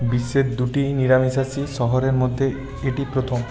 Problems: continuous background conversations